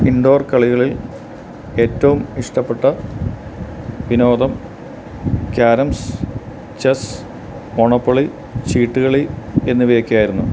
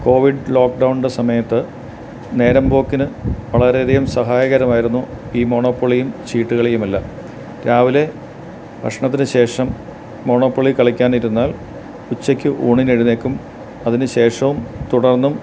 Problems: none marked